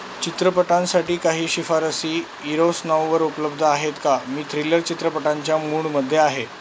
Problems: constant background noise